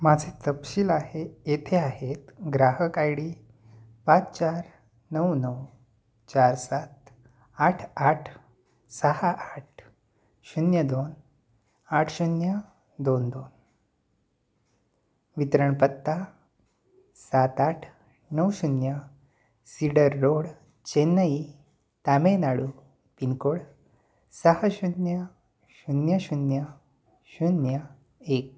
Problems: none marked